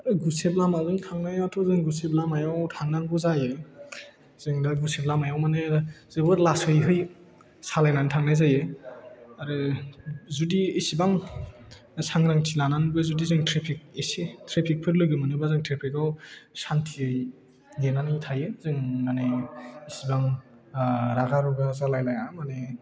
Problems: low volume